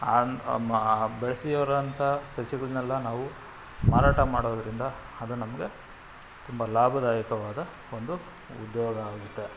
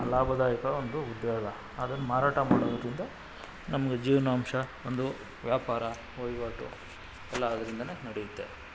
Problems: background sounds at intervals